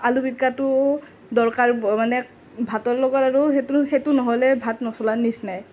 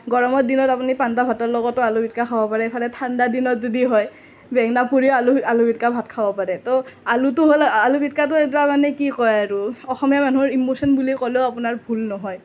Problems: none marked